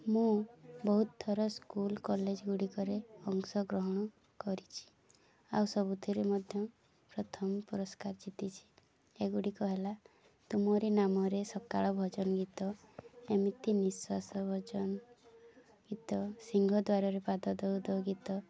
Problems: none marked